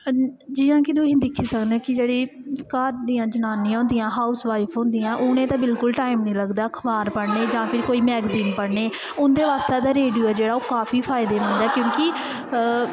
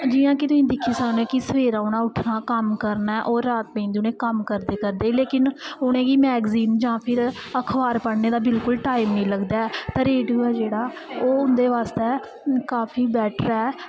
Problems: echo